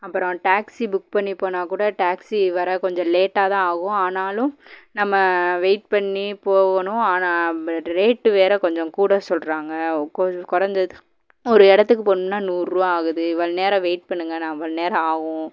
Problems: background conversations at intervals